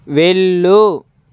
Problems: constant background noise